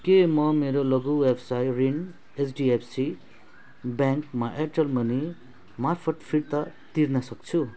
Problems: background sounds at intervals